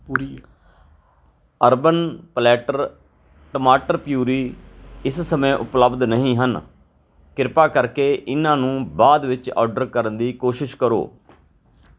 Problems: background sounds at intervals, background conversations at intervals